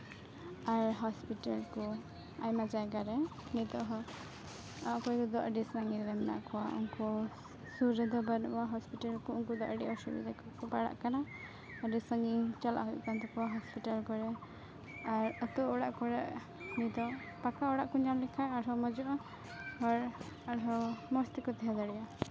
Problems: constant background noise, background conversations at intervals